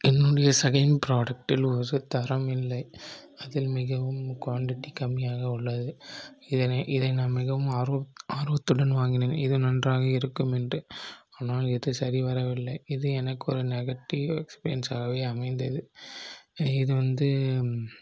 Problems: low volume